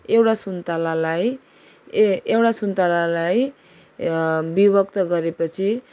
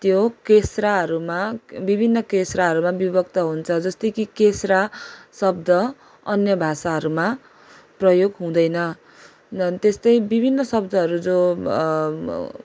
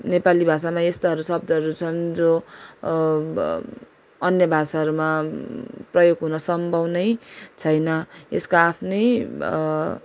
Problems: none marked